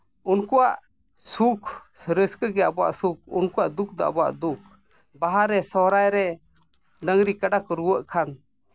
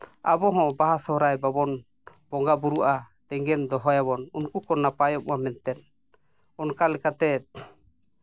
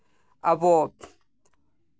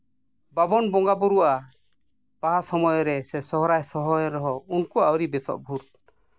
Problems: none marked